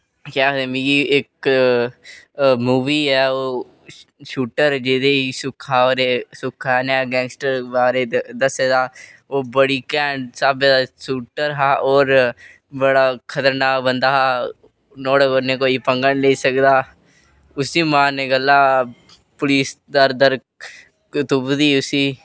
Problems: none marked